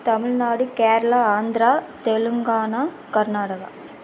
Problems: constant background noise